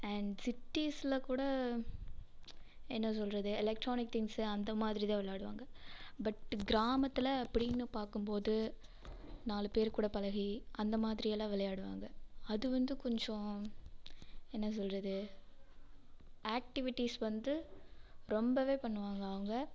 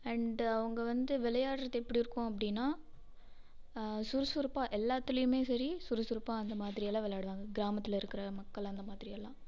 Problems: none marked